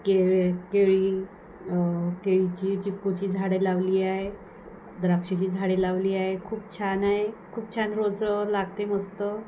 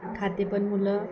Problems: background sounds at intervals